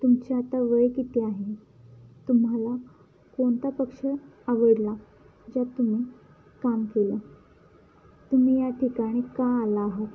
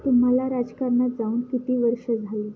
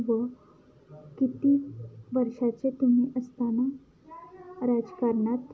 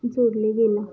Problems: background sounds at intervals, background conversations at intervals